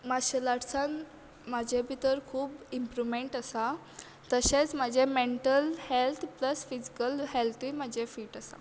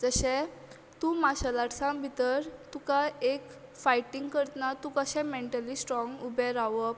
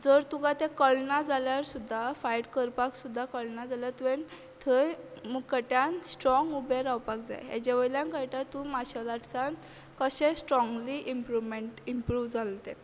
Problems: none marked